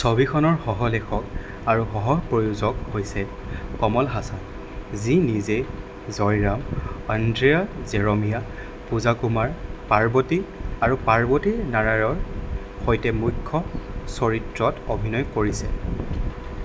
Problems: none marked